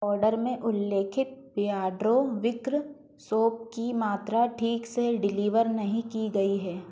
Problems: background sounds at intervals